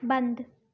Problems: background sounds at intervals